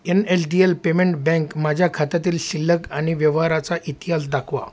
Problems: constant background noise